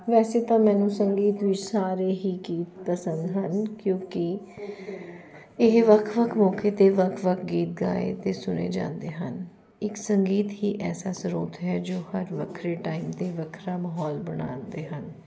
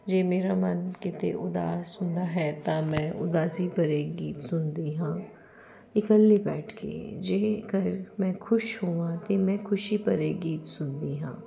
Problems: none marked